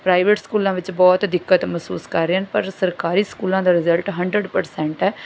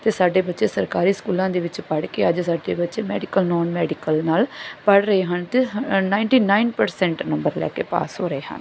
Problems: none marked